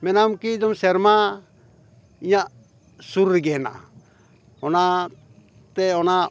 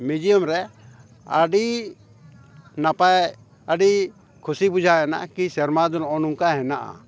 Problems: none marked